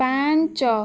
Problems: continuous background conversations